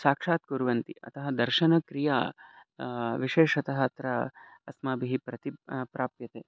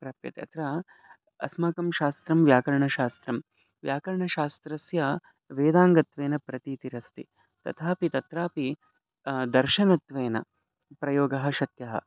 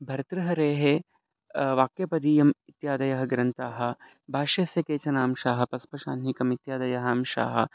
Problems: none marked